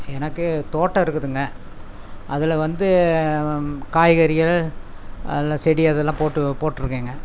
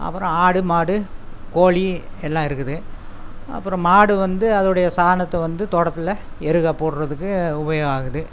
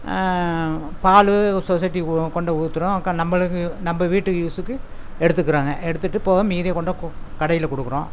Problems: none marked